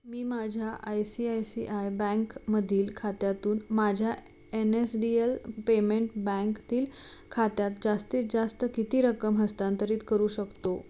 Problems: none marked